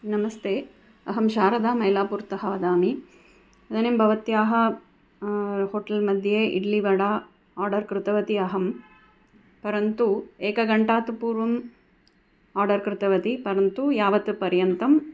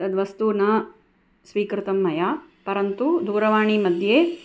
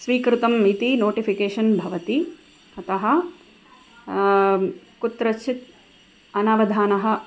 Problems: none marked